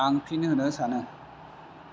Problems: constant background noise